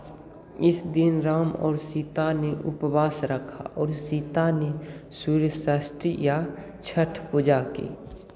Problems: constant background noise